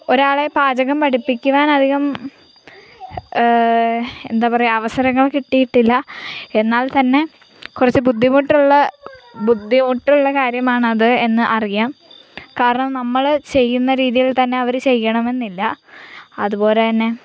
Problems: none marked